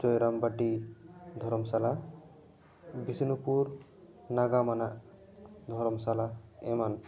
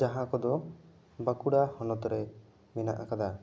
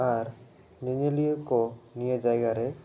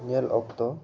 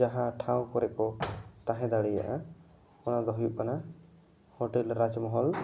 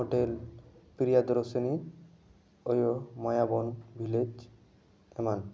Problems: background conversations at intervals